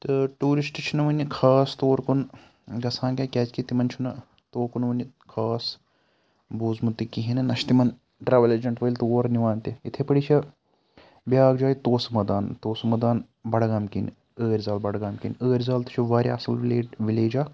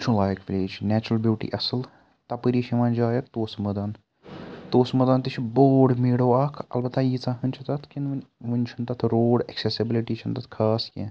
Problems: none marked